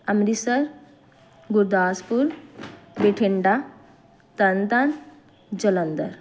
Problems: none marked